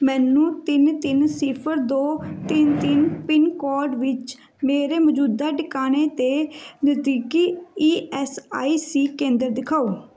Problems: background sounds at intervals